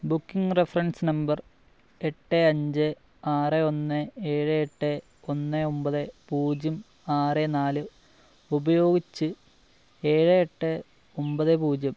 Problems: low volume